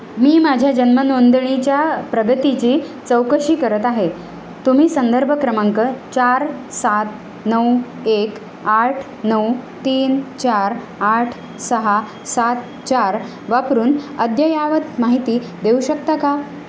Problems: constant background noise